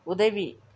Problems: none marked